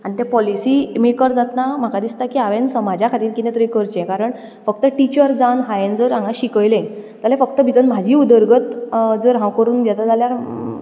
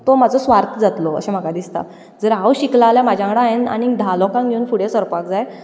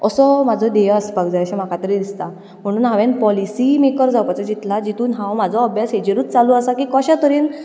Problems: background sounds at intervals, continuous background conversations